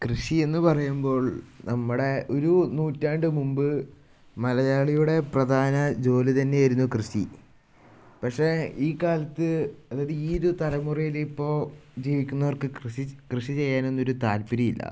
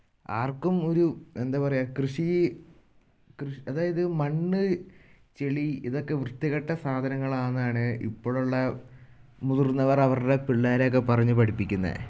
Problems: none marked